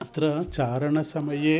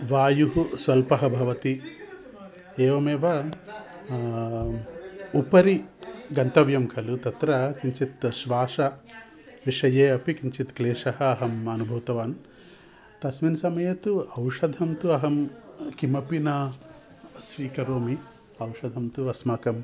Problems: background sounds at intervals